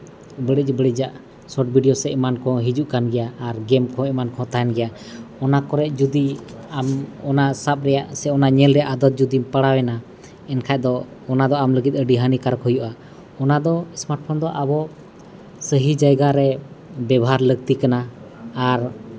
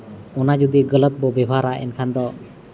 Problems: constant background noise, continuous background conversations